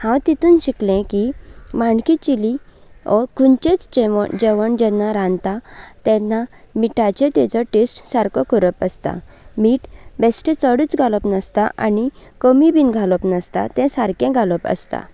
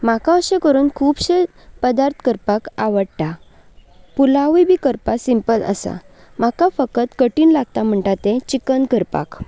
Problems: none marked